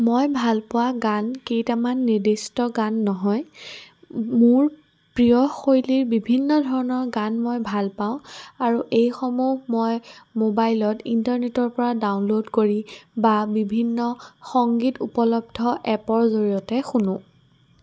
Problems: background sounds at intervals